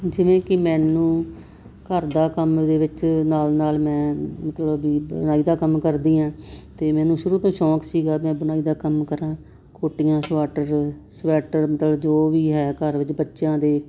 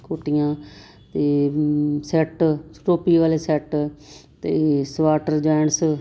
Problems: constant background noise